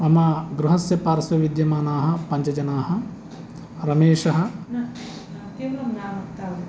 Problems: background conversations at intervals